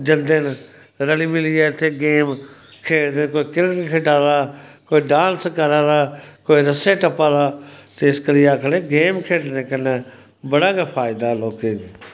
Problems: constant background noise